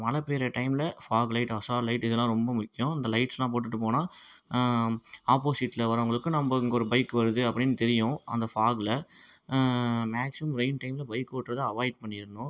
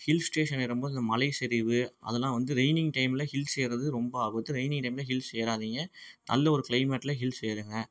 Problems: background sounds at intervals